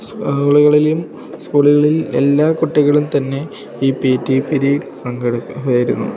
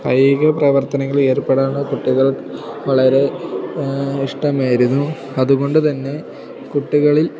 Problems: background sounds at intervals